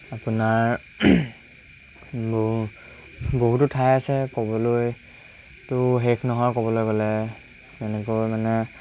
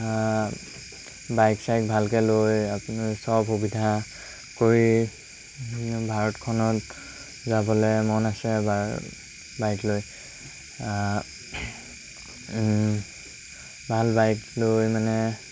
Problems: constant background noise